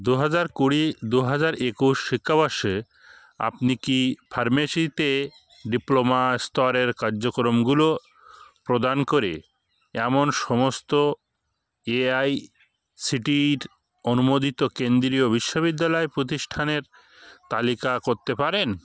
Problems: none marked